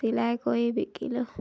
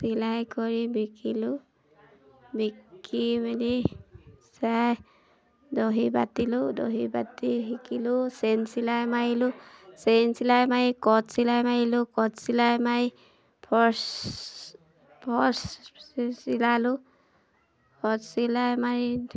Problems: none marked